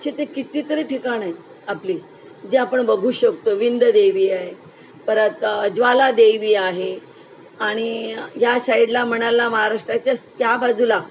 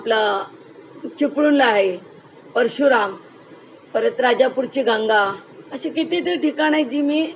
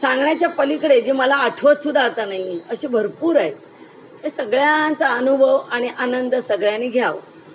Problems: background sounds at intervals